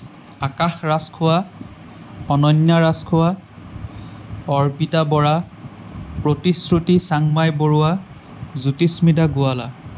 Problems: constant background noise